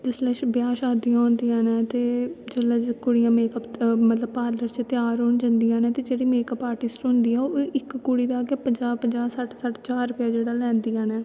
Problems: constant background noise, echo